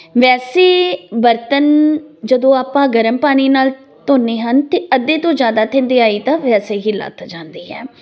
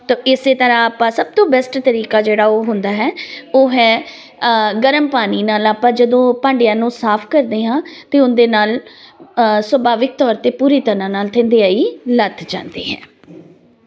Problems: continuous background conversations